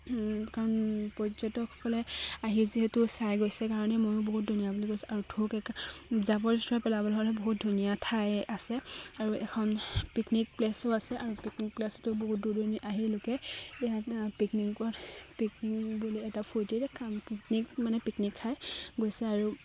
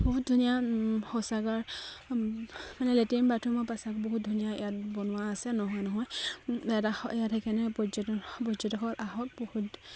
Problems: constant background noise, background conversations at intervals